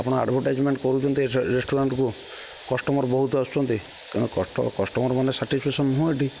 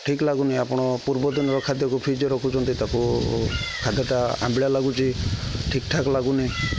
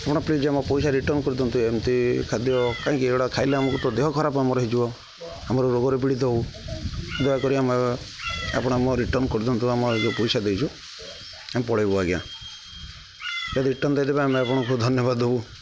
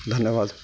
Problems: constant background noise, continuous background conversations